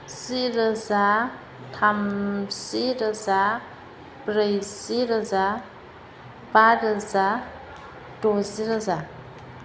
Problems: constant background noise